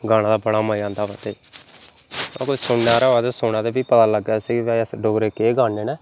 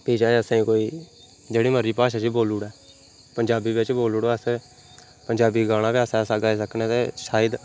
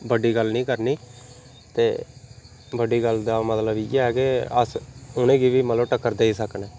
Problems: none marked